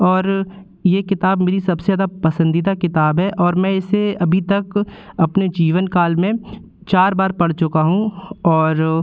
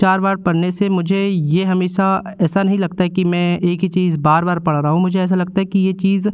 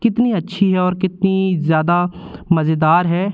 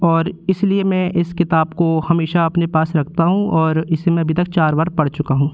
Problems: constant background noise